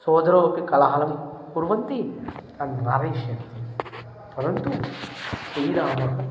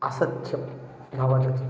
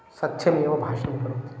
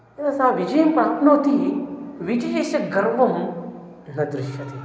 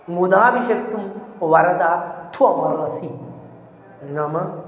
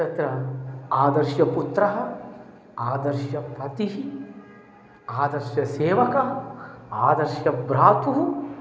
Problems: constant background noise, background conversations at intervals